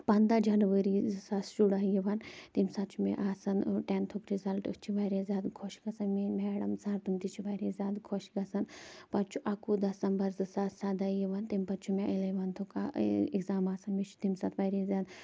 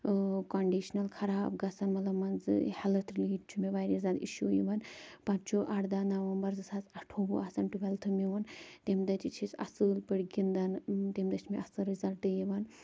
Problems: none marked